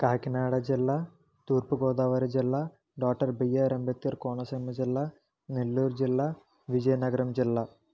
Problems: low volume